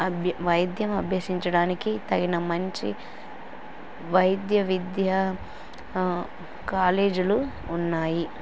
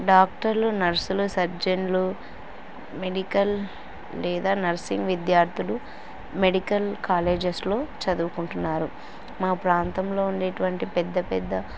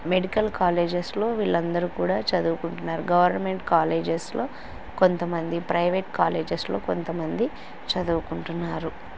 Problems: constant background noise